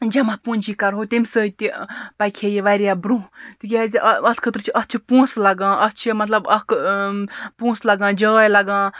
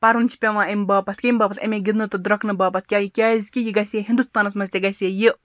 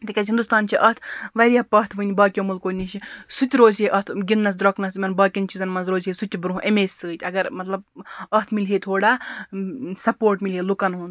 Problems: background sounds at intervals